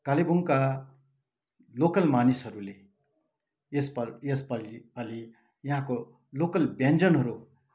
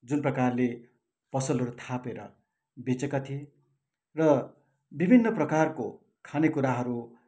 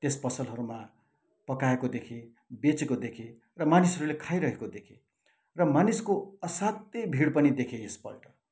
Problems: none marked